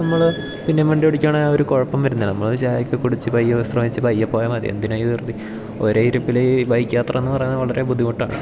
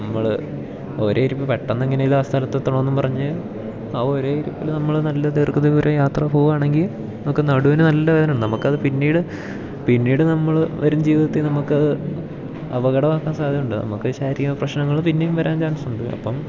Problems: none marked